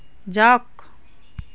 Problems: constant background noise, background conversations at intervals